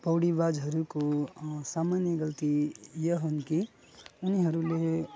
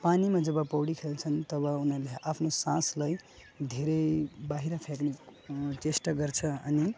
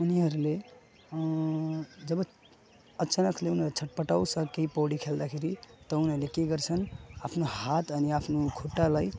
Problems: background sounds at intervals